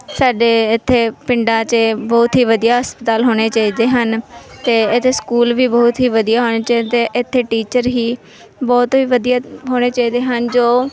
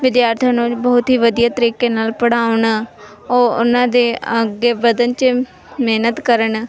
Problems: background sounds at intervals, background conversations at intervals